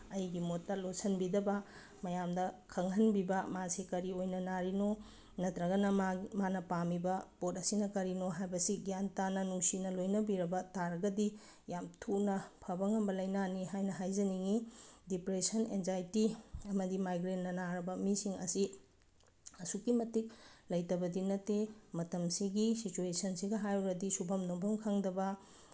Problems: background sounds at intervals